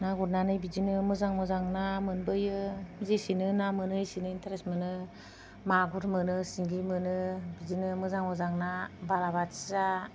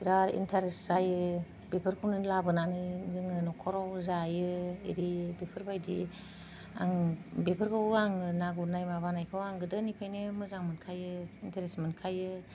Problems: none marked